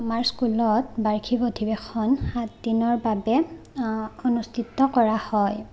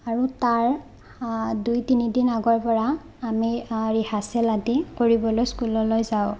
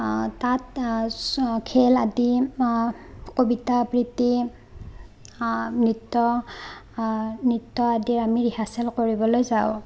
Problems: none marked